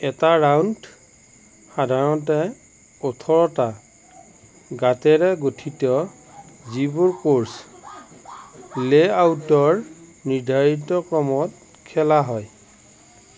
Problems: none marked